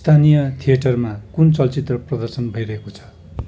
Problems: none marked